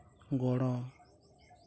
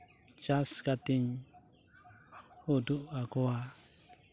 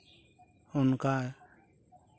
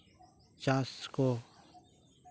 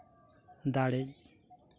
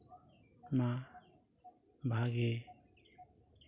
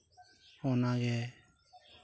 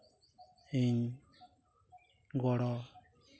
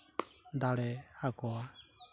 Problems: none marked